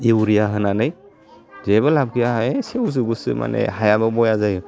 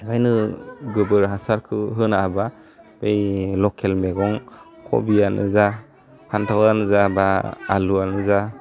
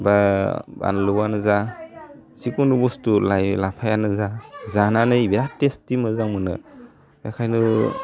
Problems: none marked